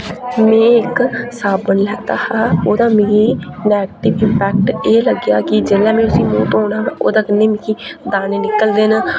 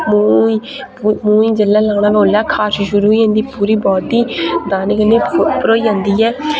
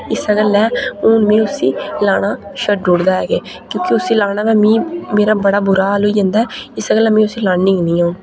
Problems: constant background noise